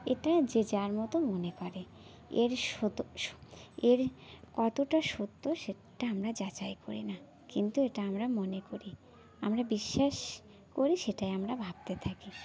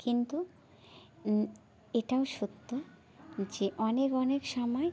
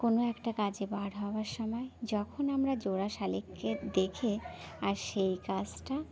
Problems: background sounds at intervals